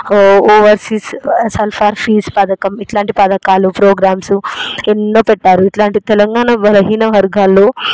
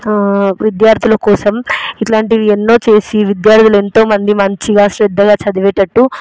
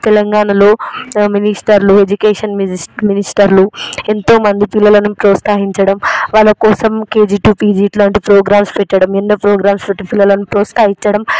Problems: constant background noise